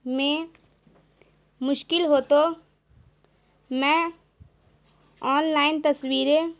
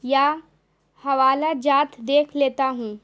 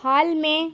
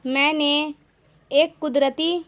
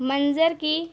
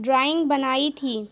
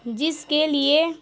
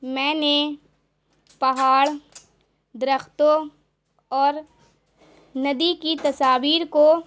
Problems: constant background noise